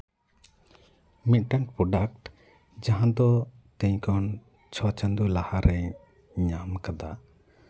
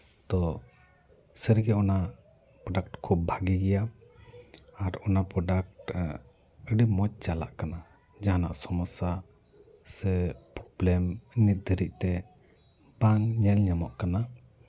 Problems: background sounds at intervals, background conversations at intervals